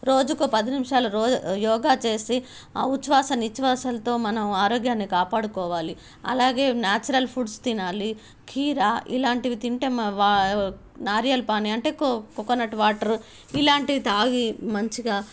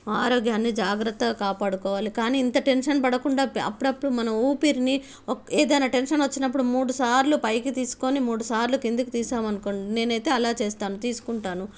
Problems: none marked